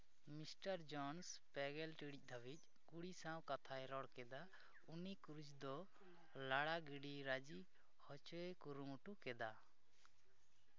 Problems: low volume